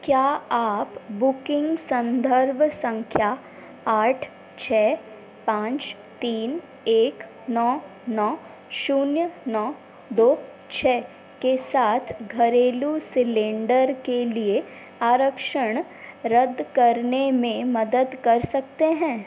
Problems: constant background noise